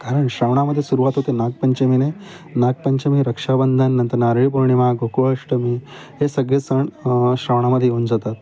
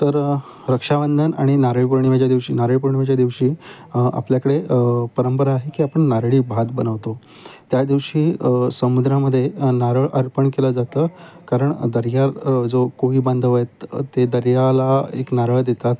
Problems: constant background noise, continuous background conversations